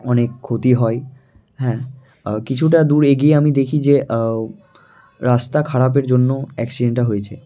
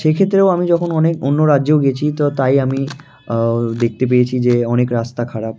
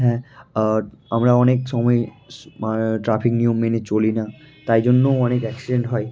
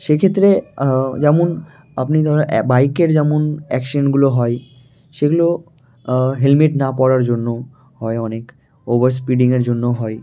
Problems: constant background noise, continuous background conversations